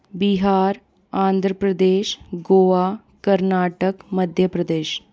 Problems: constant background noise